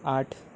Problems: constant background noise